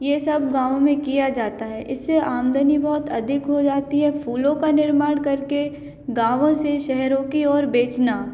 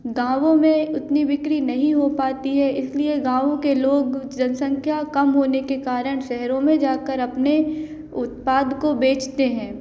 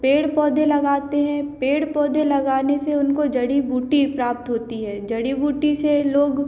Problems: none marked